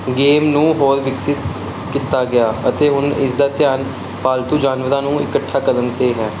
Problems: background sounds at intervals